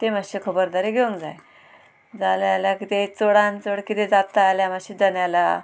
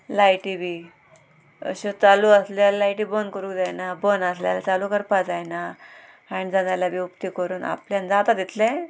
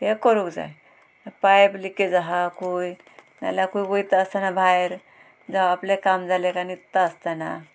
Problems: constant background noise, background conversations at intervals